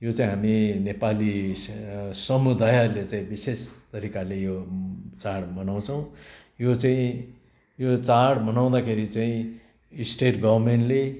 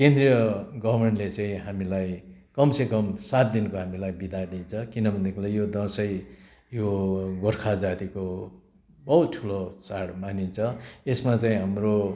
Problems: none marked